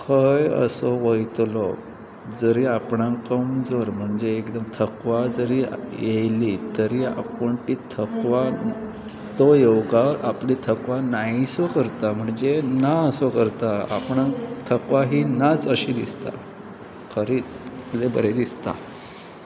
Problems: constant background noise, continuous background conversations